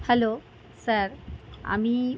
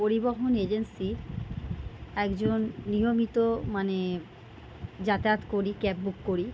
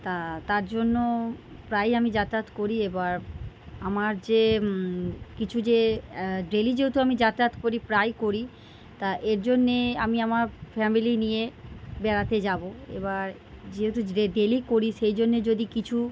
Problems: none marked